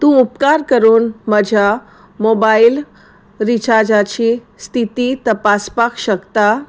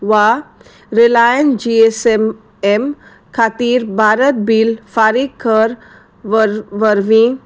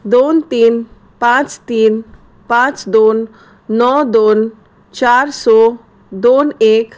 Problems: none marked